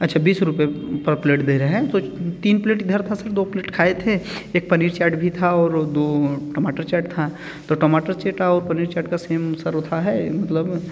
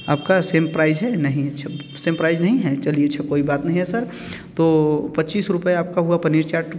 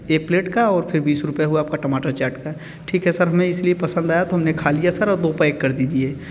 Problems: none marked